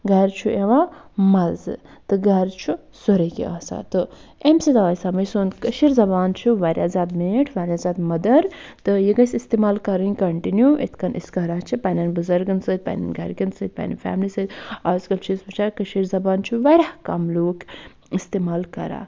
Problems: none marked